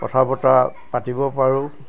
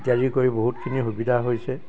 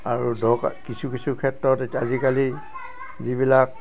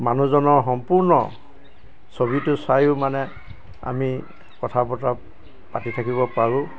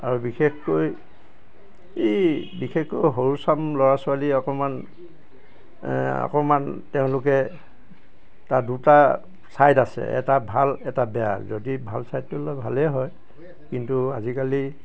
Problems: constant background noise, background conversations at intervals